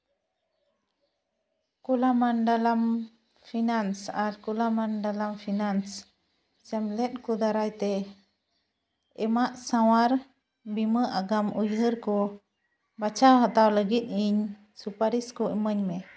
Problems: none marked